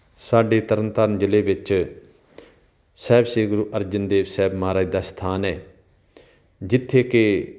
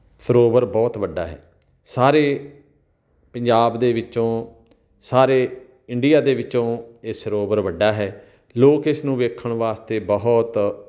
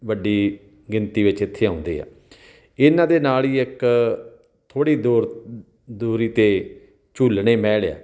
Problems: background sounds at intervals